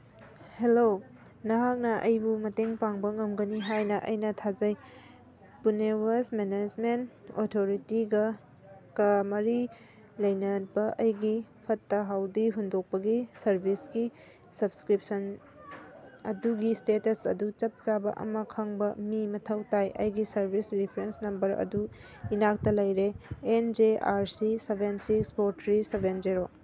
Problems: none marked